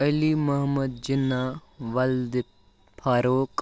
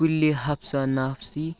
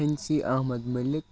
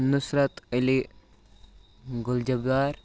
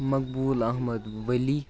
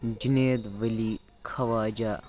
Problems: none marked